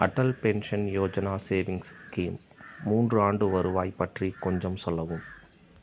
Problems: background sounds at intervals